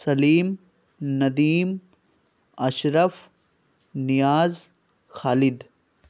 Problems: none marked